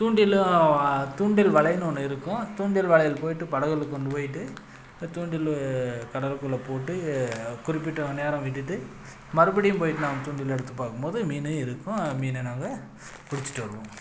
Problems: background sounds at intervals